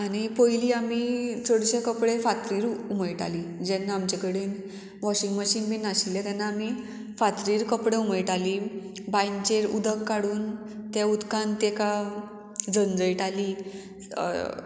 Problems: none marked